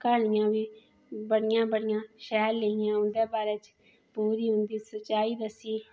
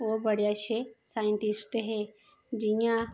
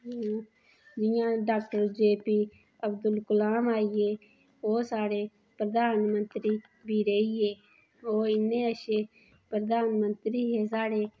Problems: background sounds at intervals